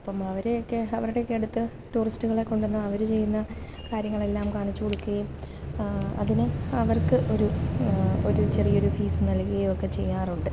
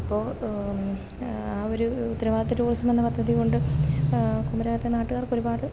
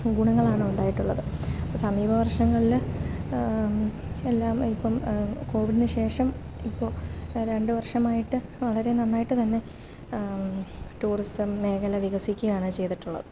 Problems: none marked